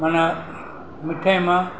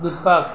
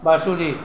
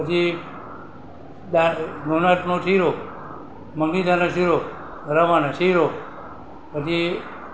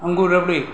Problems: constant background noise